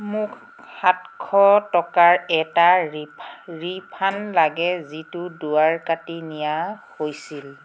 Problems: background sounds at intervals